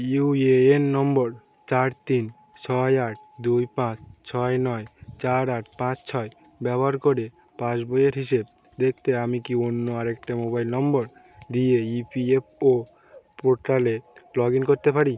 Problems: none marked